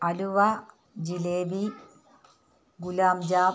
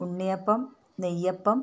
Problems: none marked